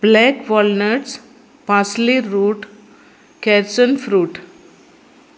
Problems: background sounds at intervals